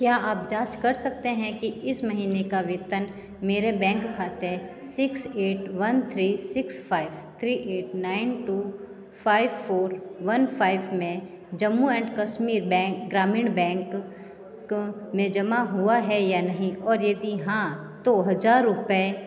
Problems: constant background noise, continuous background conversations